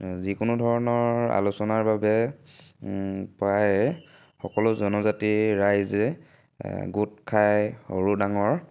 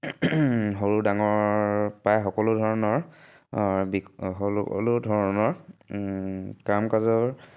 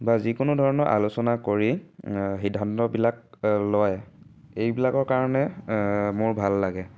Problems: none marked